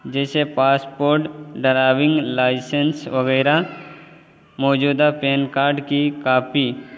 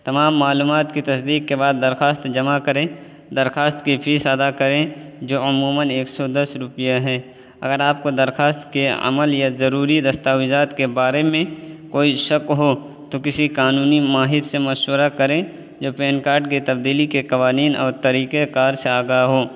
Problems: constant background noise